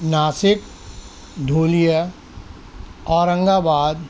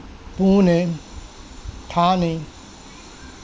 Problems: background sounds at intervals